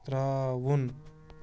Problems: none marked